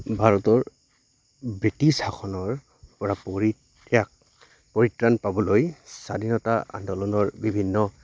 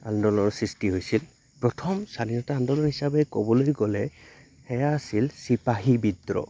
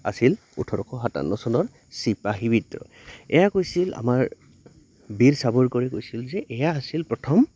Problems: constant background noise